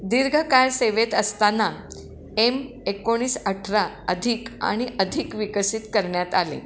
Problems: constant background noise, background conversations at intervals, echo